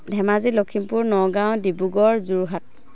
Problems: constant background noise